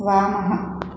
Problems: constant background noise